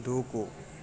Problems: low volume